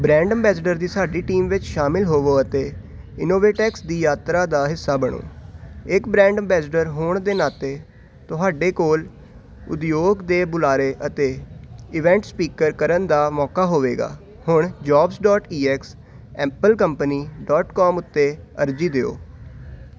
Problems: none marked